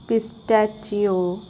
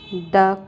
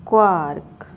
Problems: constant background noise